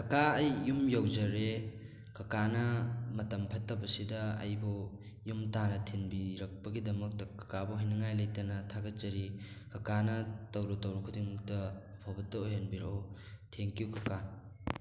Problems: background sounds at intervals